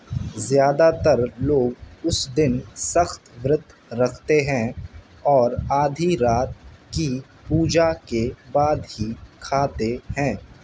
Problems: constant background noise